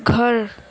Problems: none marked